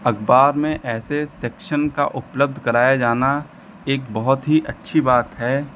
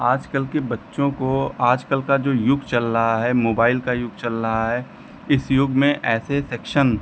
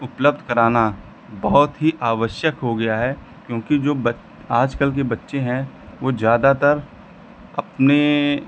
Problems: none marked